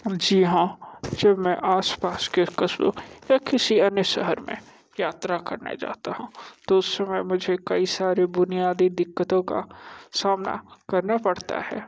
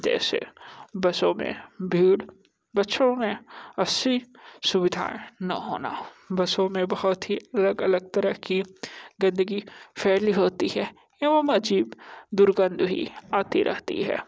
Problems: constant background noise